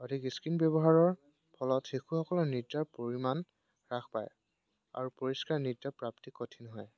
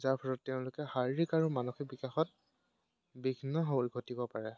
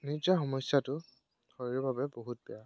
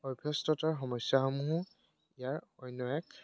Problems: background sounds at intervals